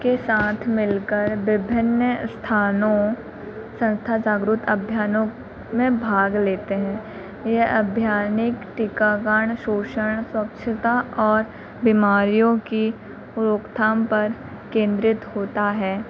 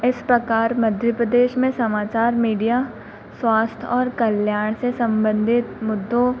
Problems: constant background noise